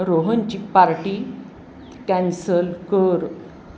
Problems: constant background noise